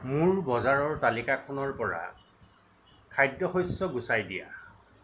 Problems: constant background noise